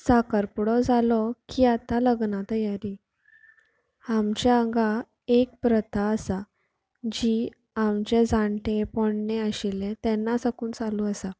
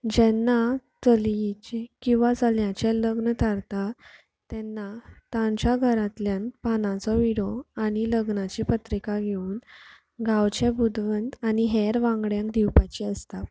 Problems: low volume